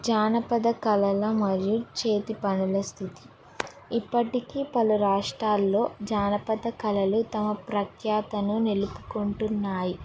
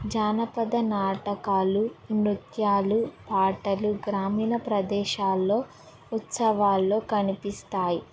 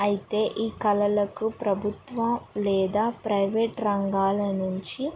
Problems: background sounds at intervals, background conversations at intervals